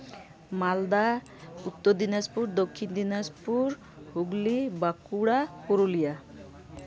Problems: none marked